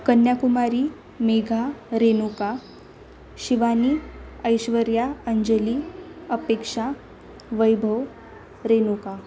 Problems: none marked